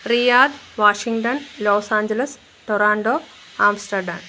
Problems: background sounds at intervals